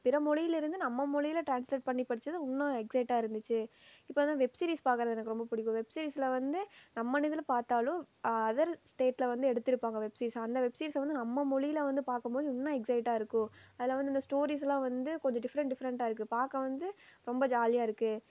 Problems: low volume